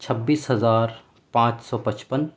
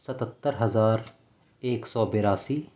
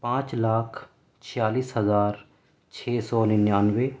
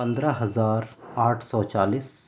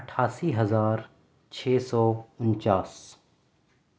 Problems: none marked